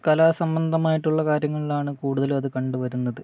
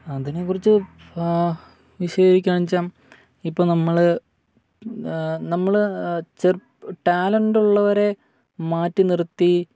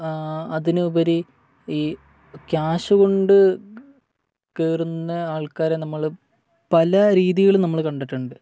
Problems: none marked